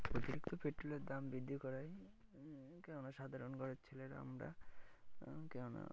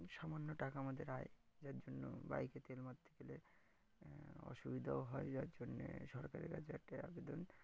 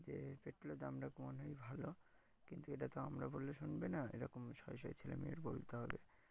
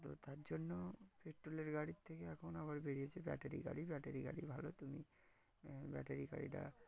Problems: background sounds at intervals